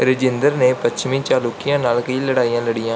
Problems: background sounds at intervals